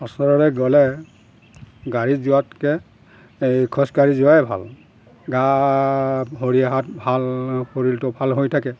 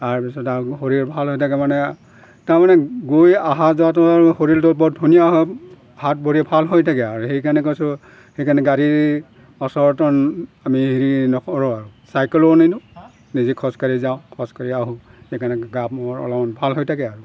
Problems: constant background noise